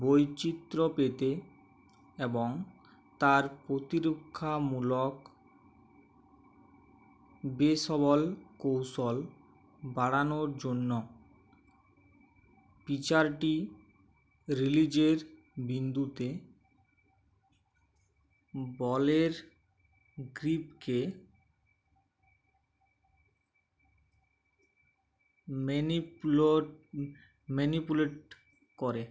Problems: none marked